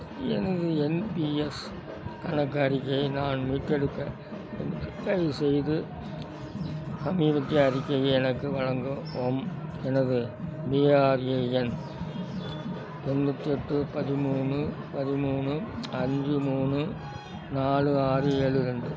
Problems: constant background noise